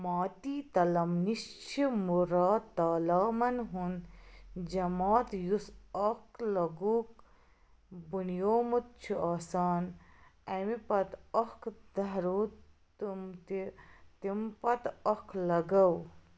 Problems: background sounds at intervals